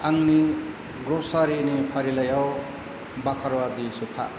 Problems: constant background noise